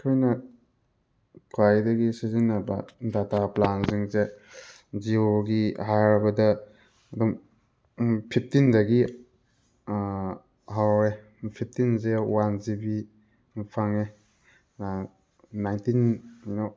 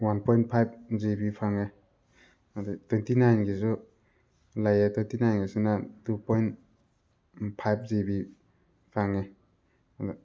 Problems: background sounds at intervals